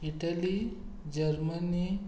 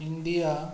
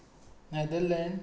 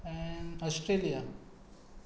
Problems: constant background noise